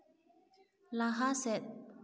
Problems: echo